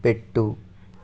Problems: constant background noise